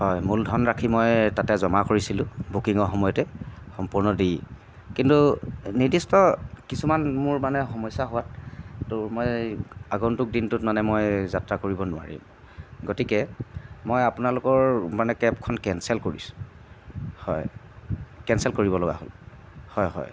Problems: constant background noise